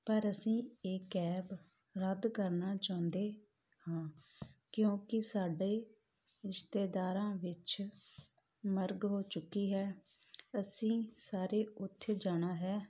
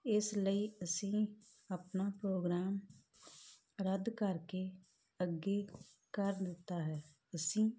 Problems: none marked